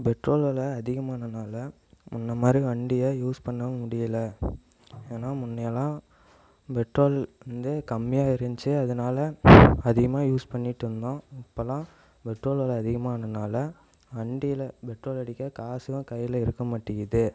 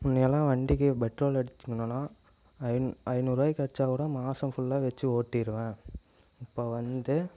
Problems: echo